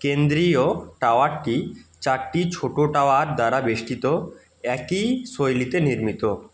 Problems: background sounds at intervals